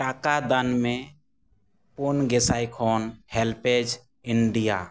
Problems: none marked